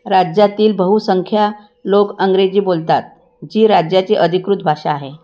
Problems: none marked